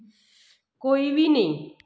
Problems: echo